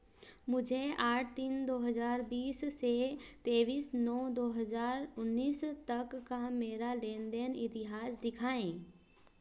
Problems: none marked